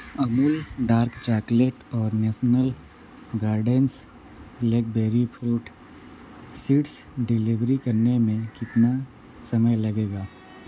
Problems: constant background noise